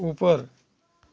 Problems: constant background noise